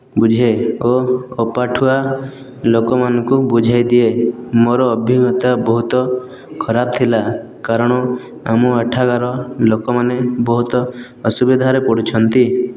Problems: none marked